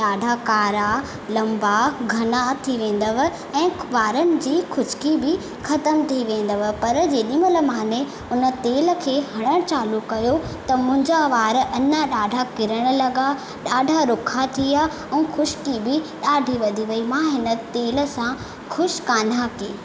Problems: echo